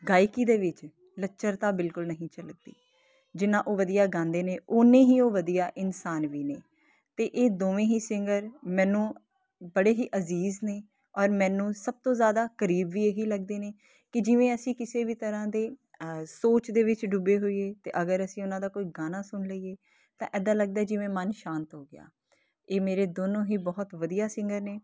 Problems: constant background noise